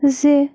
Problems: constant background noise